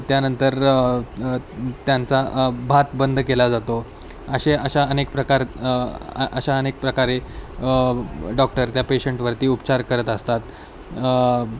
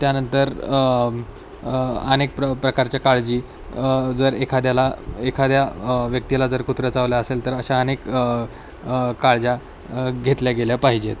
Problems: constant background noise, background conversations at intervals